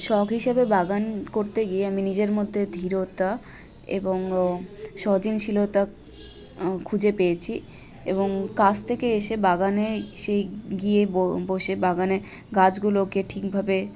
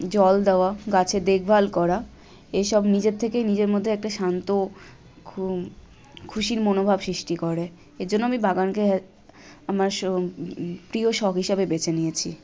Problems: constant background noise, continuous background conversations